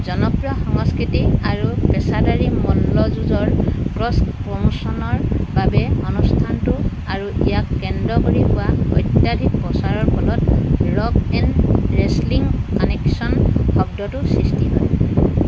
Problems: background sounds at intervals